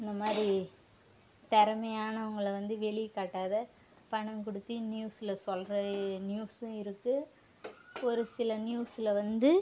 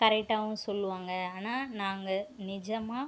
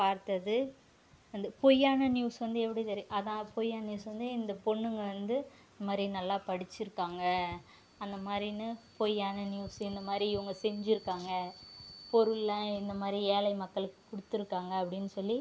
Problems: background sounds at intervals